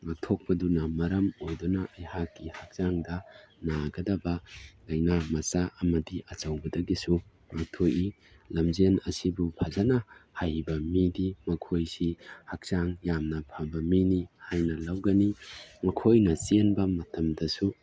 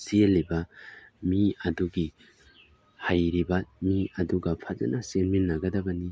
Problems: none marked